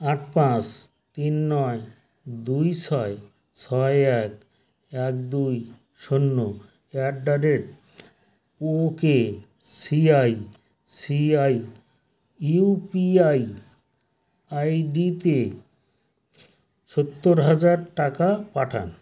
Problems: none marked